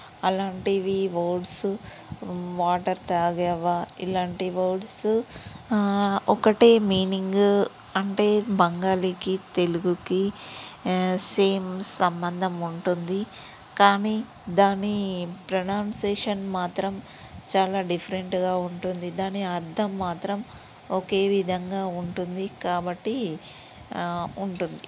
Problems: background sounds at intervals